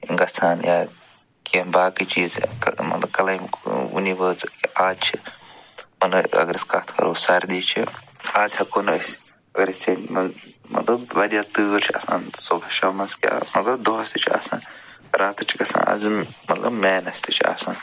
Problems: background sounds at intervals